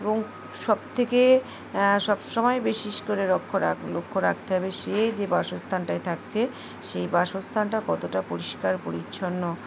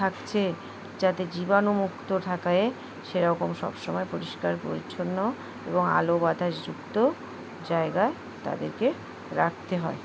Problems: constant background noise